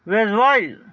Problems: background sounds at intervals